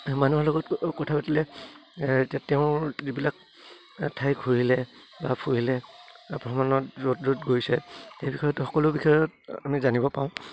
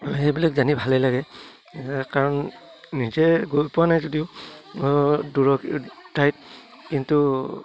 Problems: none marked